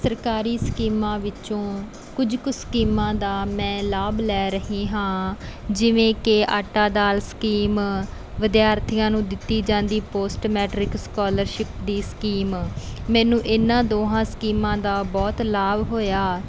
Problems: none marked